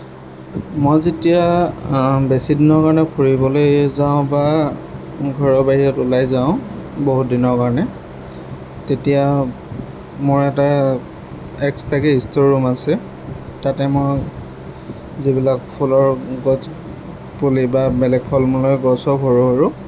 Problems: background sounds at intervals